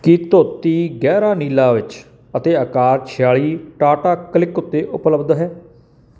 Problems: background sounds at intervals